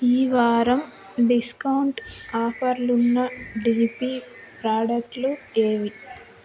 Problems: continuous background conversations